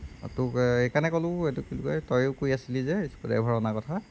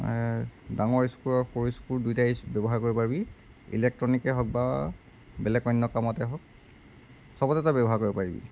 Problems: background sounds at intervals